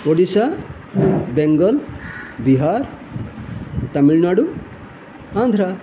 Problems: constant background noise